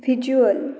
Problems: constant background noise